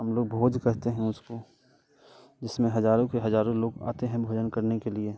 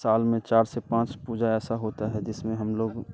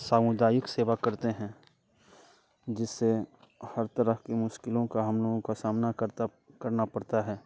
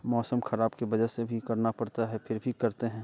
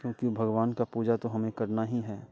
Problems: constant background noise